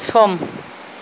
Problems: constant background noise, low volume